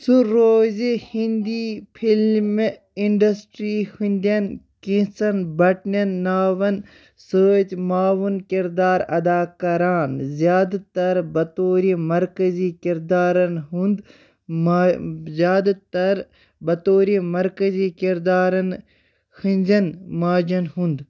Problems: background sounds at intervals